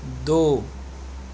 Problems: constant background noise